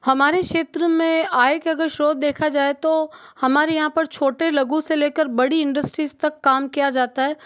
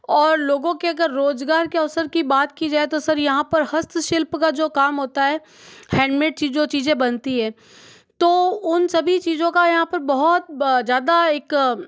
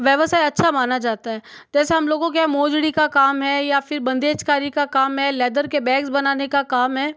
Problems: background sounds at intervals